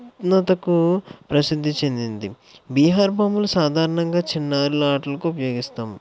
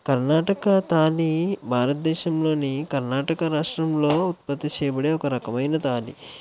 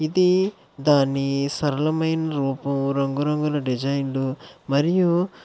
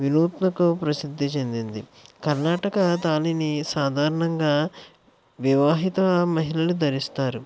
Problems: none marked